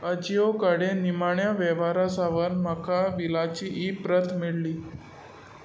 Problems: constant background noise